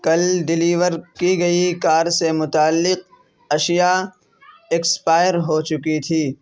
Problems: constant background noise